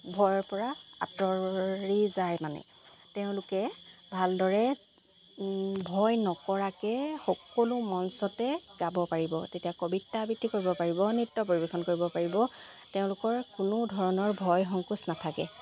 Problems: none marked